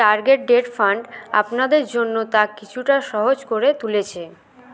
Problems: continuous background conversations